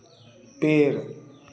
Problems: constant background noise